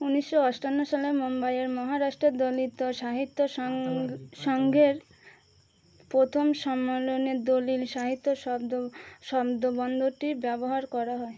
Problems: none marked